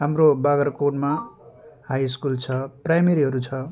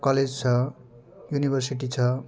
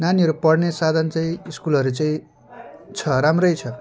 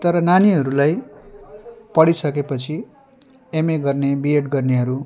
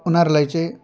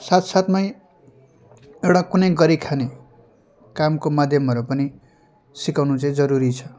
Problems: background conversations at intervals